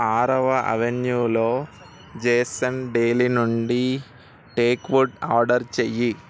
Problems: constant background noise